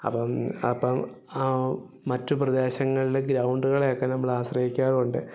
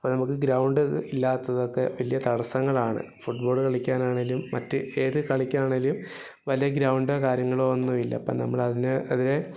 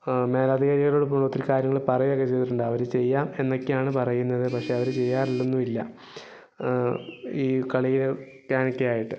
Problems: background sounds at intervals